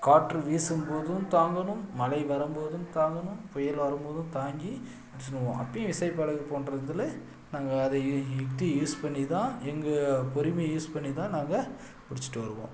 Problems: background sounds at intervals